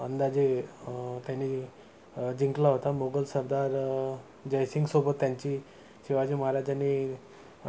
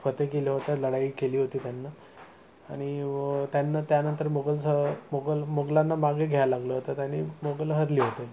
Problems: none marked